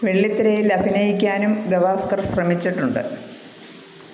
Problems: constant background noise